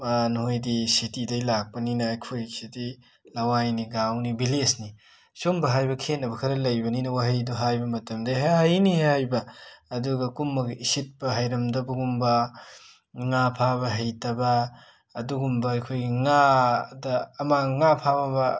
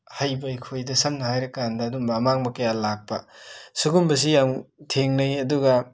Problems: background sounds at intervals